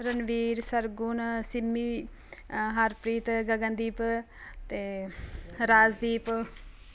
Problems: none marked